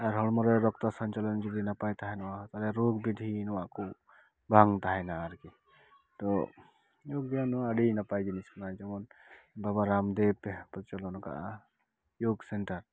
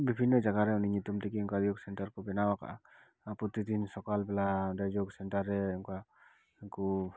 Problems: none marked